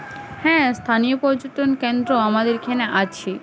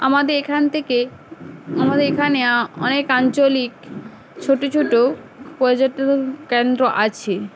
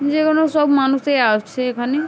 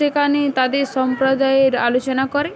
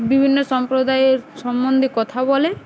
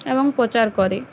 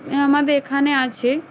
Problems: none marked